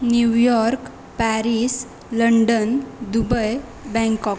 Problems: none marked